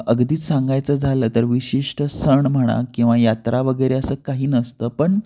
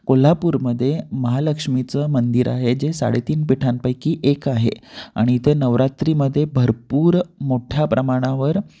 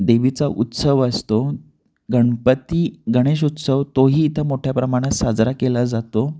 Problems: none marked